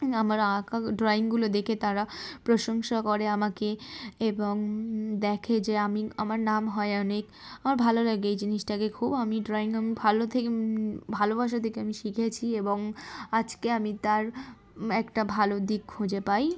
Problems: background sounds at intervals